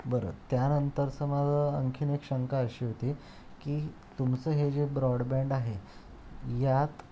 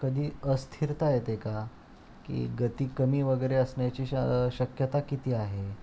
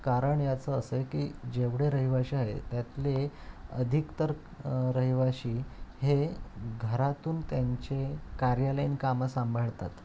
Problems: constant background noise